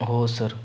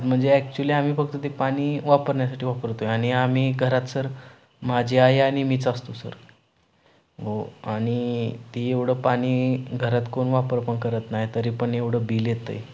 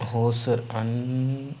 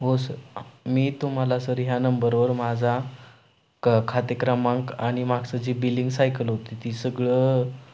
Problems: none marked